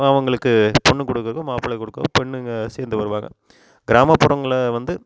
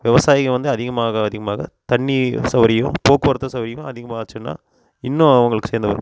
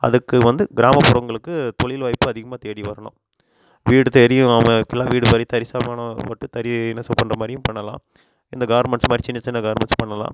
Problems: background sounds at intervals